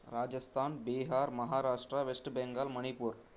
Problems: constant background noise